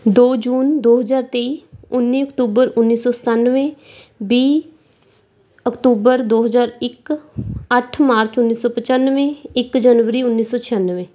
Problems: background sounds at intervals